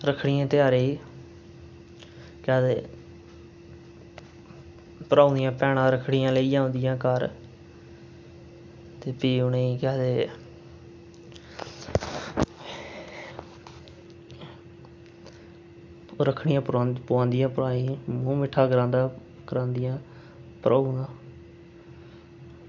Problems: constant background noise